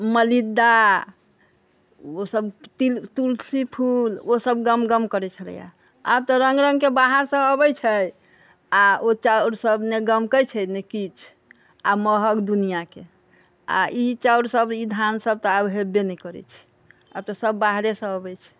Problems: background conversations at intervals